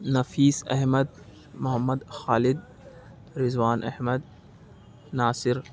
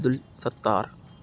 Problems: none marked